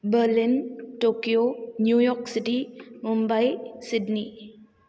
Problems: none marked